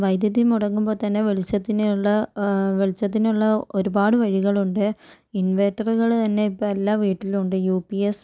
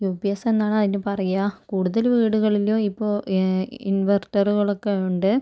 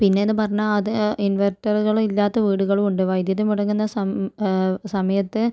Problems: none marked